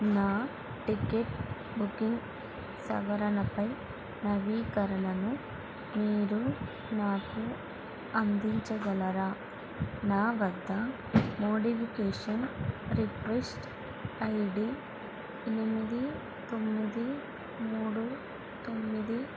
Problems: constant background noise, low volume